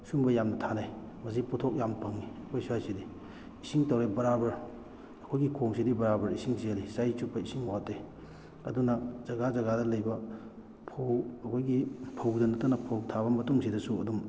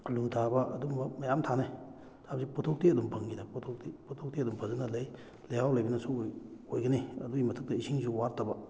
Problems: none marked